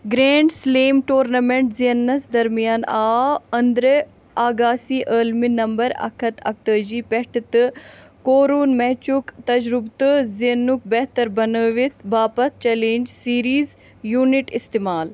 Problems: background sounds at intervals